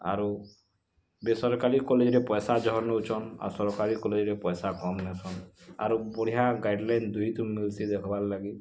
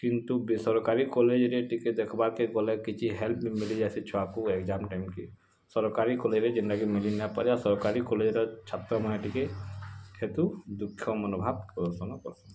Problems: constant background noise